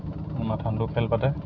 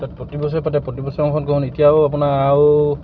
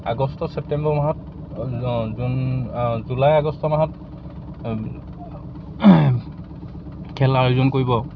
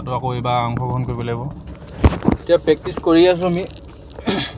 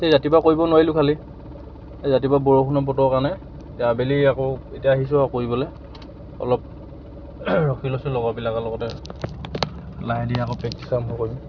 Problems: background sounds at intervals